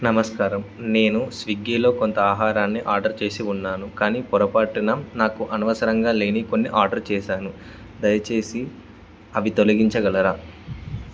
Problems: constant background noise